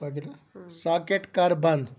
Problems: background conversations at intervals